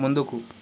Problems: constant background noise